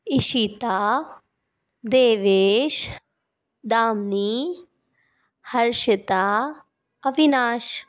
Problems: background sounds at intervals